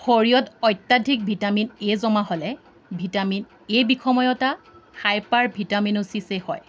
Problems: none marked